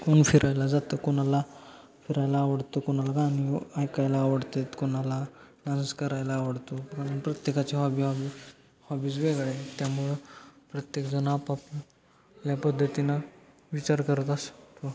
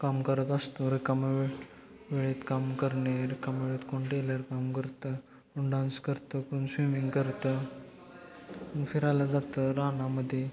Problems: constant background noise, background conversations at intervals